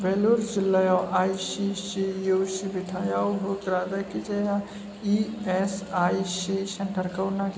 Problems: constant background noise